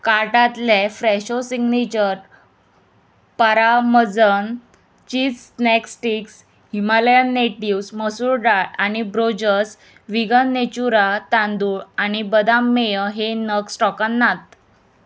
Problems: constant background noise